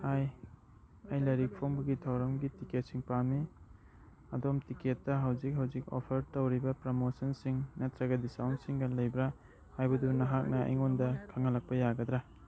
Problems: background sounds at intervals, background conversations at intervals